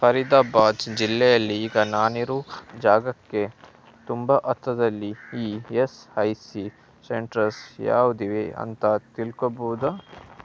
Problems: none marked